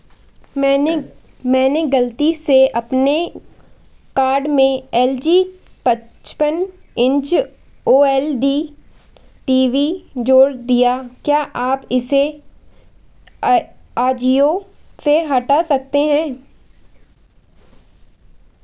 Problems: constant background noise